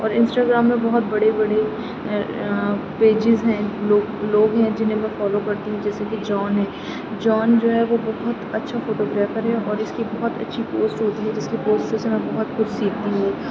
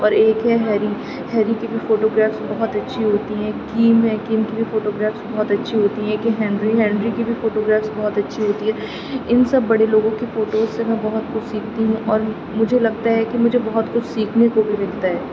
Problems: none marked